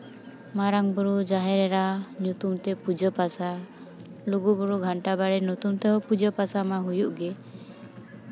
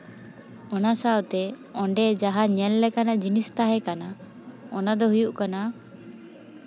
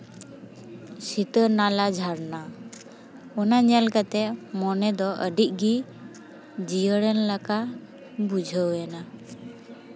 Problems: constant background noise